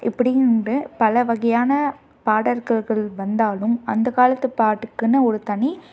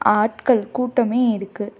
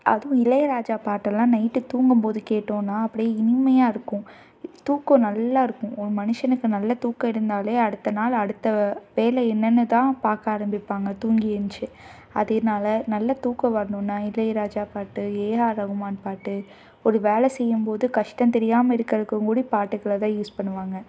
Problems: none marked